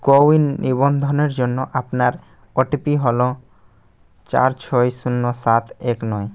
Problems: background sounds at intervals